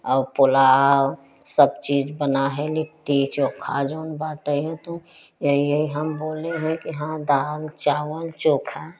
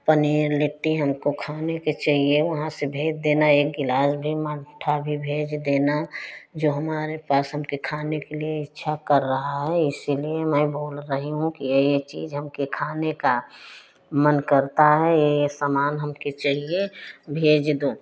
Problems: background sounds at intervals